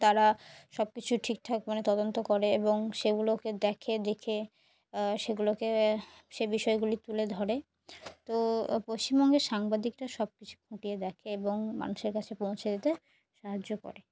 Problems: background sounds at intervals